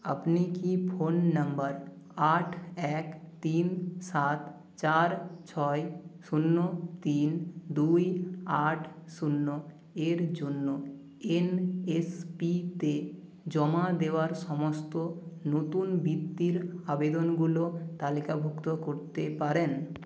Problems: background sounds at intervals